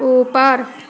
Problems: constant background noise